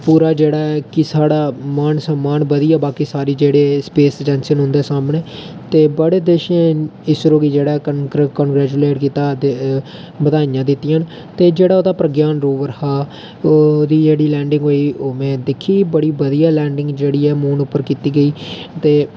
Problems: none marked